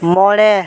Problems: constant background noise